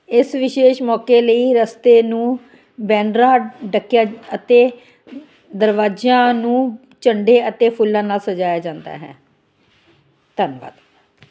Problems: none marked